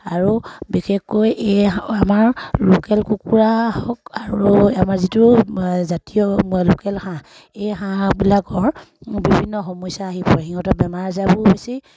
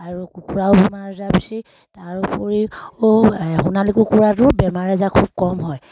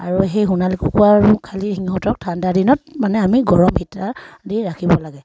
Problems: none marked